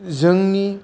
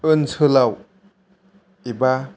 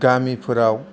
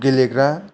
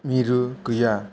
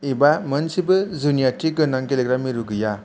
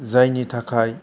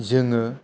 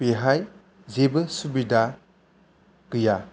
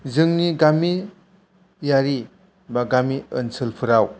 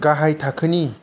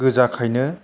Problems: low volume